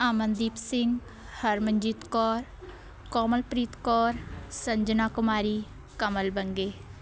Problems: background sounds at intervals, continuous background conversations